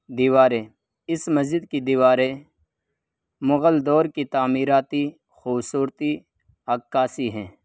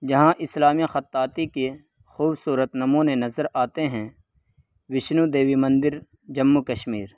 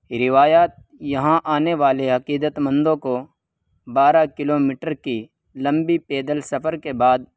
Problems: constant background noise